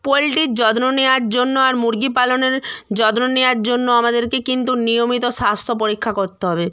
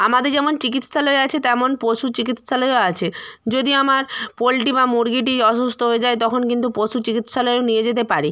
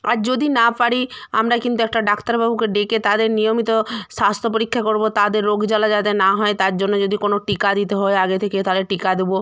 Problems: none marked